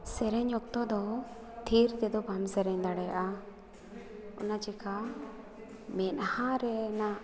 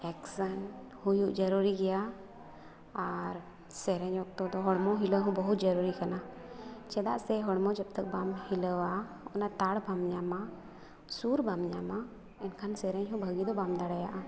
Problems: background conversations at intervals